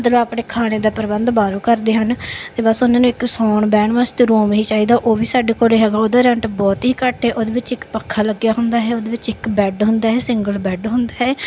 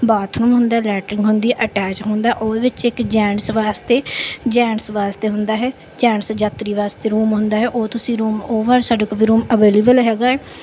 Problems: background sounds at intervals, background conversations at intervals